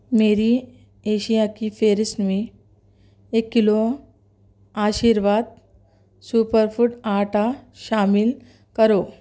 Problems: none marked